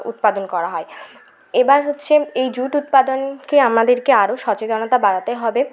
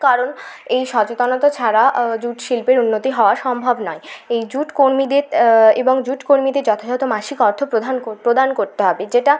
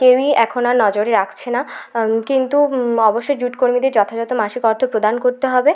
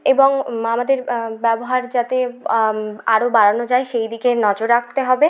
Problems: none marked